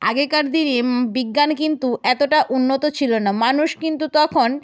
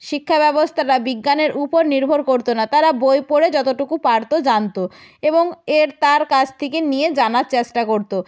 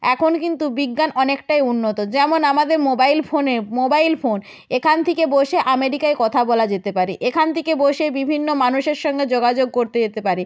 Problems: none marked